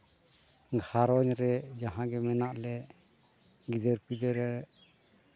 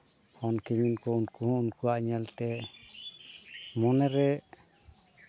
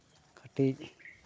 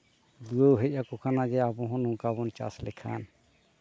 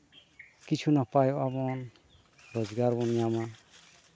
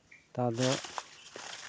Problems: background sounds at intervals